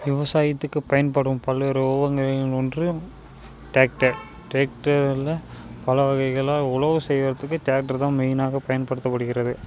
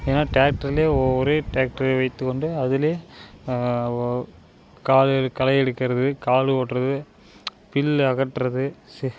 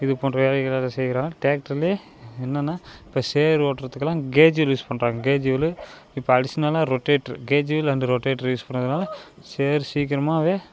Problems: constant background noise